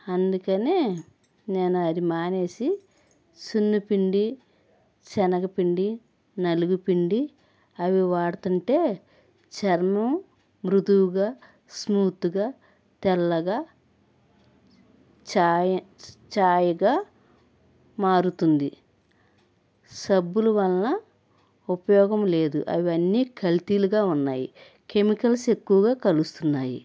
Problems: background sounds at intervals